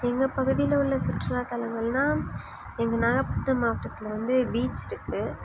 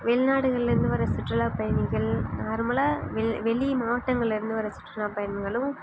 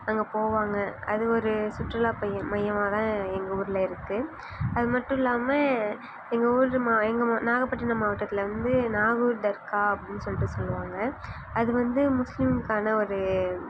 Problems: none marked